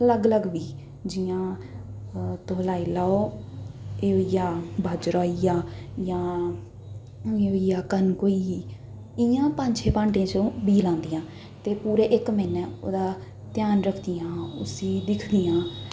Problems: none marked